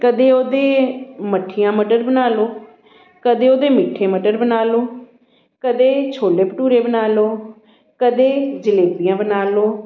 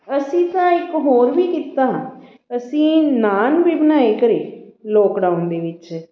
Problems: background sounds at intervals, continuous background conversations